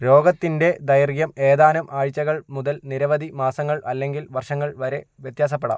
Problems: none marked